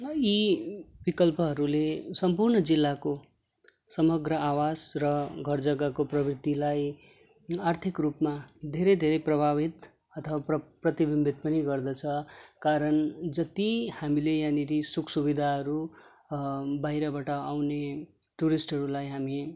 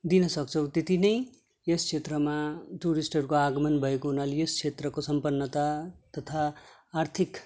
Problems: none marked